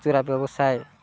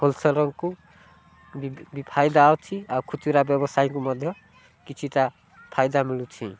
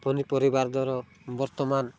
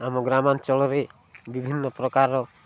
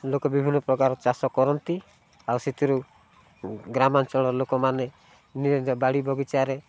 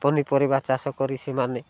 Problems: low volume